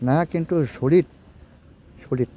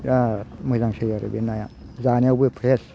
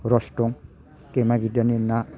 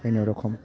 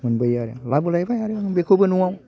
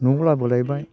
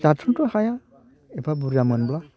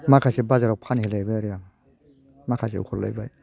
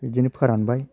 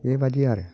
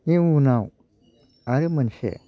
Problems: low volume